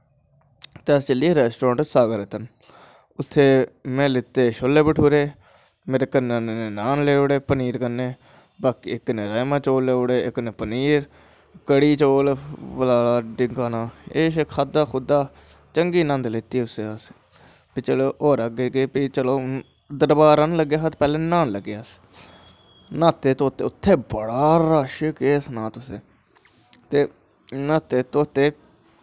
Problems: constant background noise